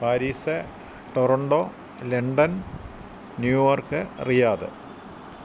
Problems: none marked